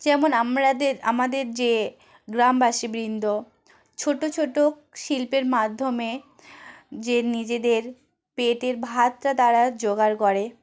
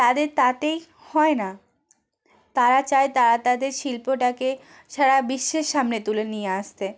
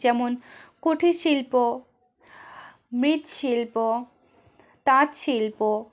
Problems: none marked